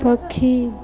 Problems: continuous background conversations